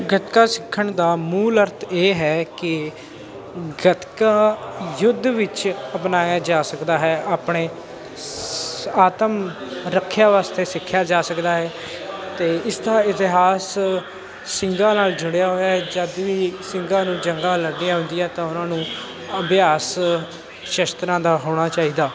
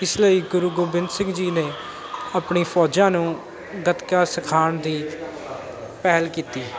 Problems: none marked